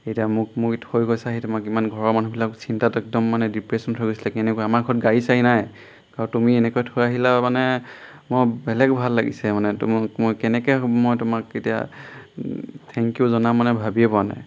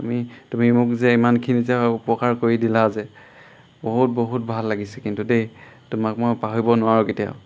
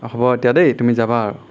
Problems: none marked